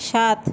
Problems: constant background noise